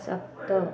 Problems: constant background noise